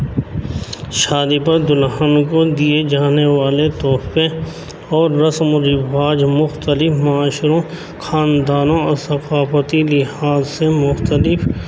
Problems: constant background noise, background conversations at intervals